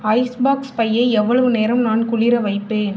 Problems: none marked